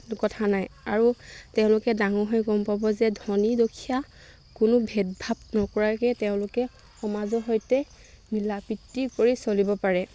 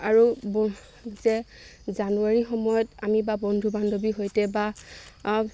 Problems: none marked